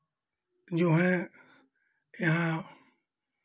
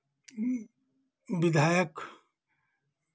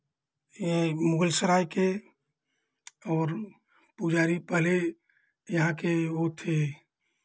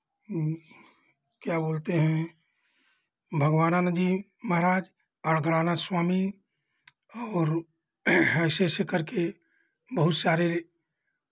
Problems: background sounds at intervals